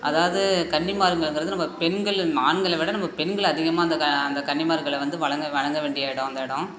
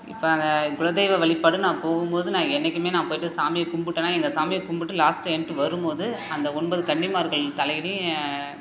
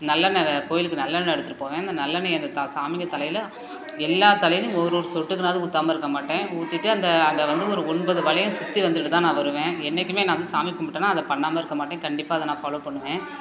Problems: constant background noise